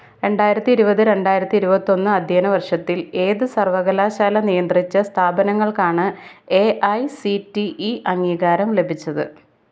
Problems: none marked